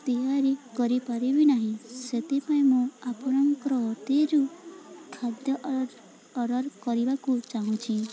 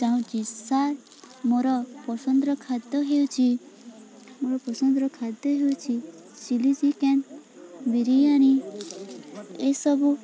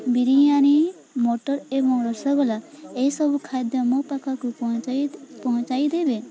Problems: constant background noise, continuous background conversations